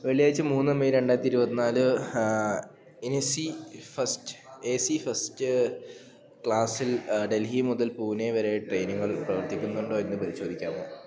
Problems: none marked